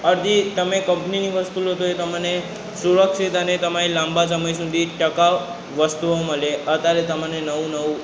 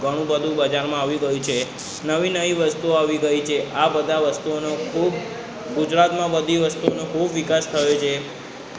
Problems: background conversations at intervals